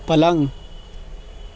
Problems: constant background noise